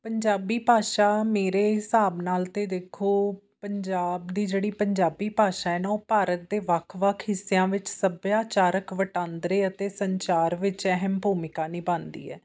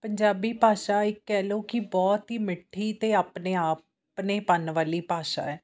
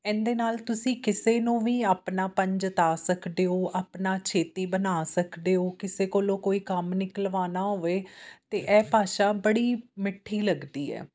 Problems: constant background noise